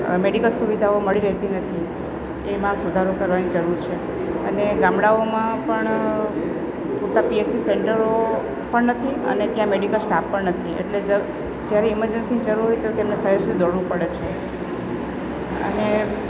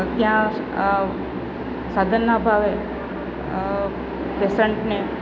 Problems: background conversations at intervals